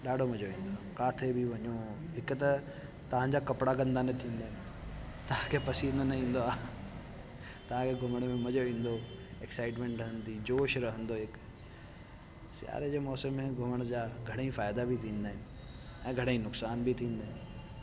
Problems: constant background noise